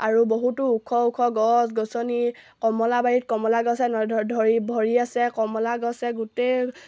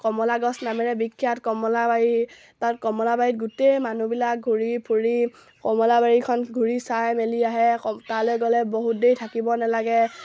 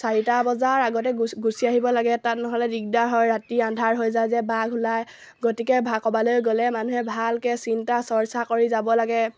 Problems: low volume